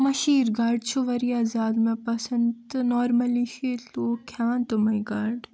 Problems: none marked